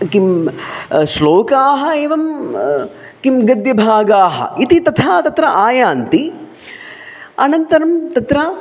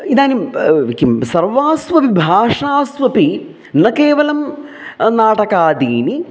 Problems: none marked